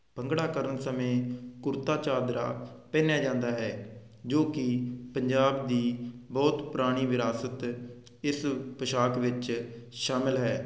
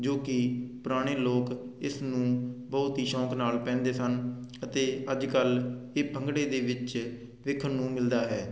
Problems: constant background noise